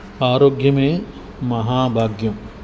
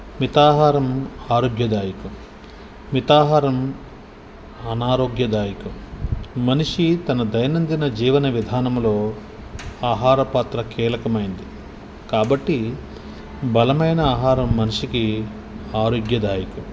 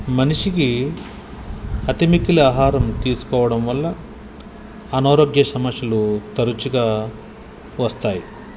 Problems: constant background noise